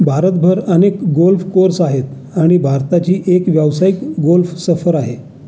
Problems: continuous background conversations